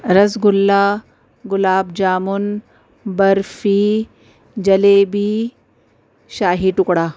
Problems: none marked